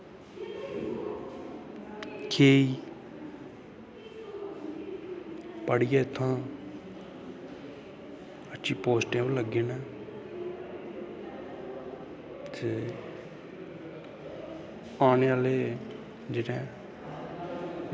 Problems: constant background noise